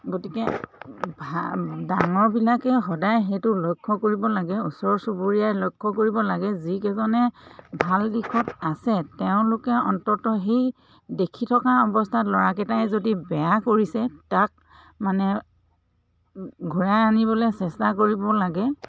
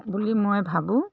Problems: constant background noise, background conversations at intervals